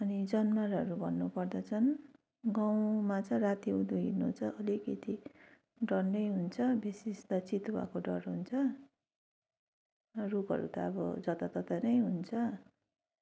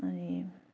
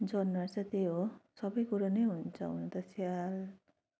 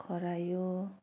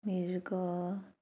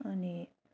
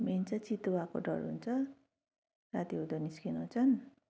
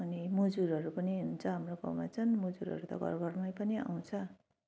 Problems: continuous background conversations